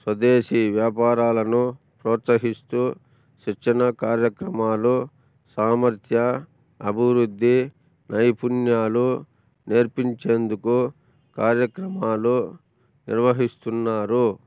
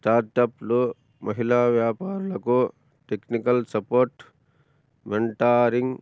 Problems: none marked